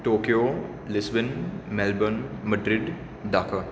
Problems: none marked